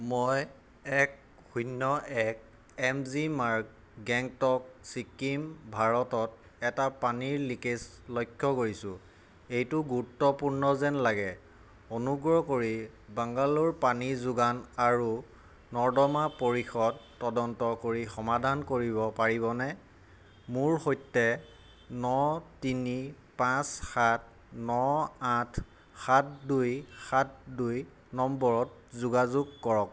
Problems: none marked